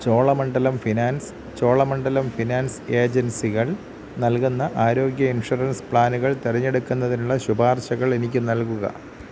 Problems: constant background noise